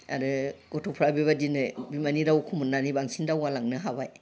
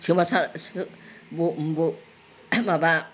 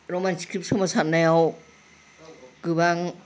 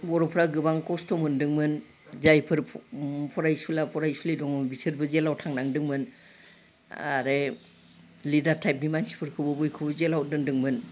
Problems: background conversations at intervals